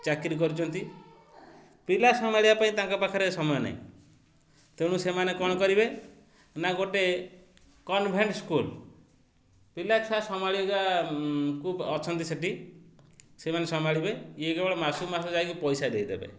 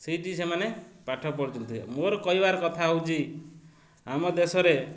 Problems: constant background noise